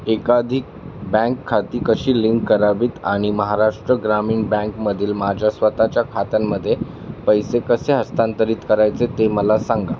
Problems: constant background noise